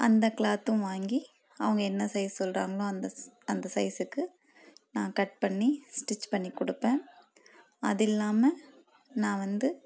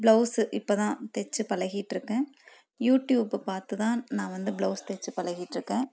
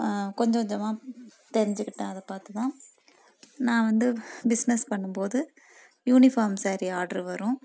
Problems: none marked